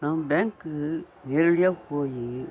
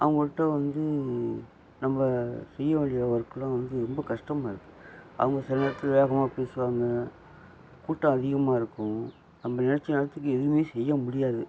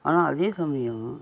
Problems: constant background noise